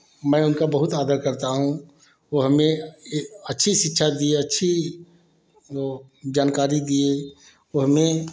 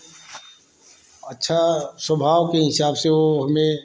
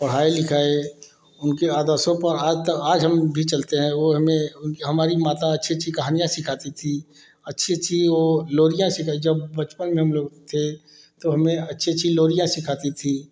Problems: constant background noise